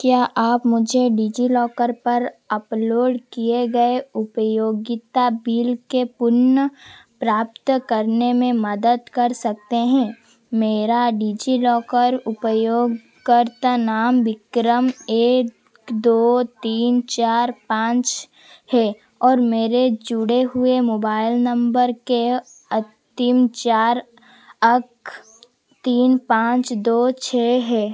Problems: constant background noise